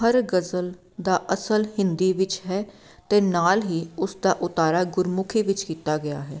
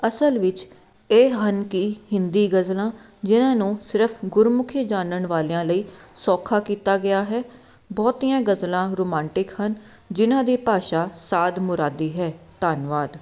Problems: background sounds at intervals